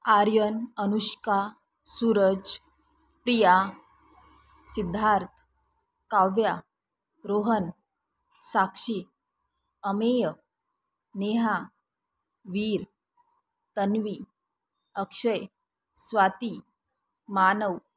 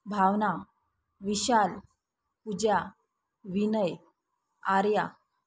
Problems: none marked